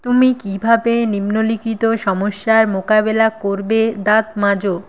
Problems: constant background noise